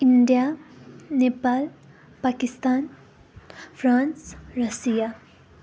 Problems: continuous background conversations